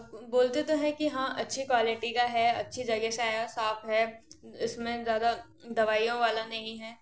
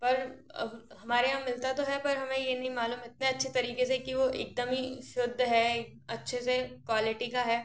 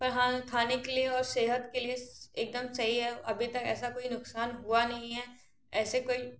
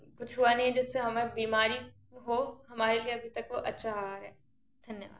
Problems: background sounds at intervals